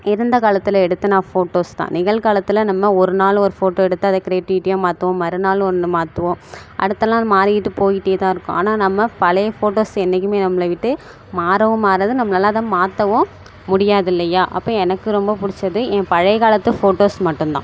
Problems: constant background noise